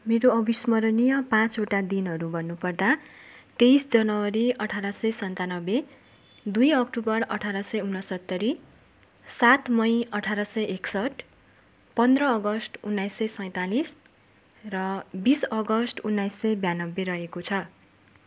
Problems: constant background noise